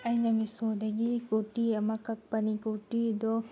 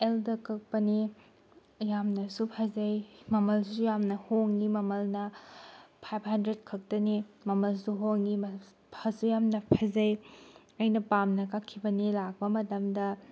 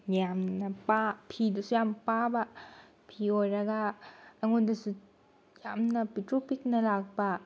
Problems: none marked